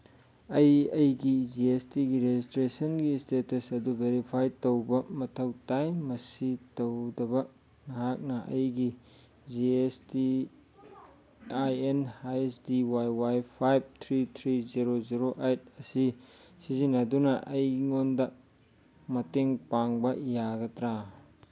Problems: background sounds at intervals